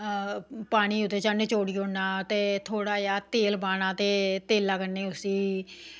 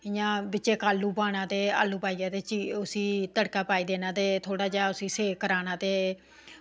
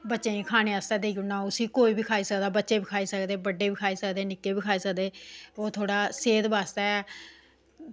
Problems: background sounds at intervals